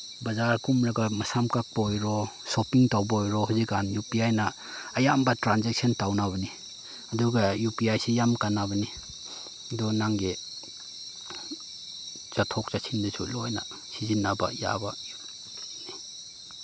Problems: none marked